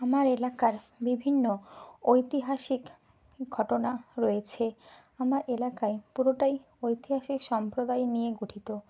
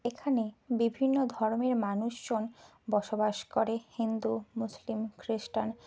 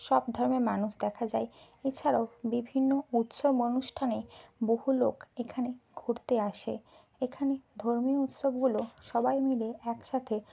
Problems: constant background noise